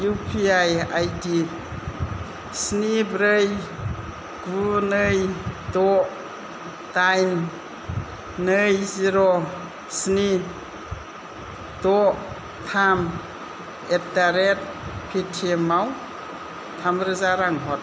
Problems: constant background noise, low volume